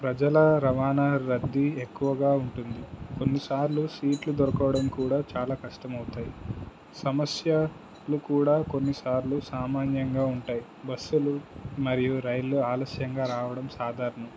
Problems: constant background noise